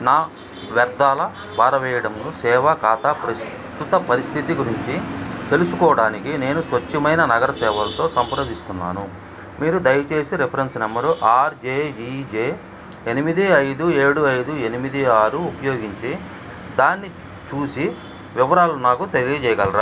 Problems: background conversations at intervals